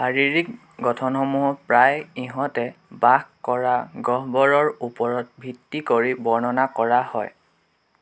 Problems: constant background noise